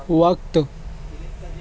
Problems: constant background noise